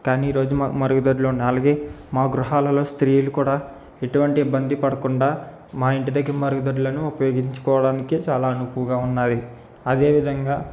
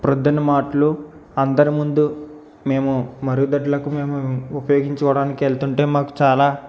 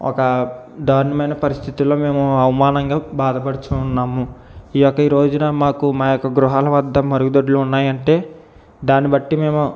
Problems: constant background noise